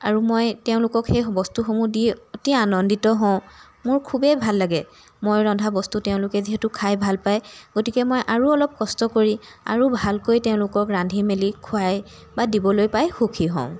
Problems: background sounds at intervals